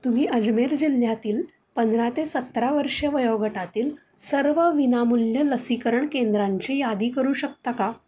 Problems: background sounds at intervals